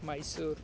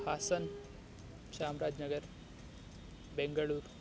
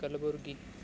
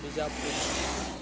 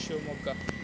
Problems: constant background noise